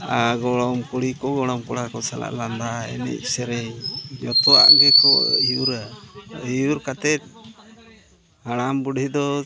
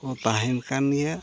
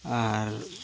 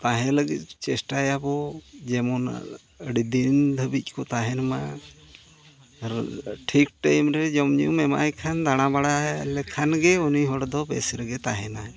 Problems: background sounds at intervals, continuous background conversations